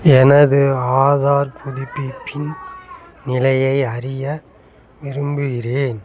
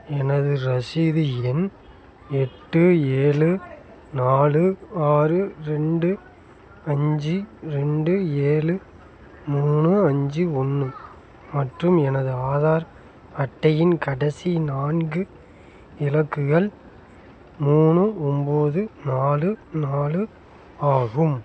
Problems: background sounds at intervals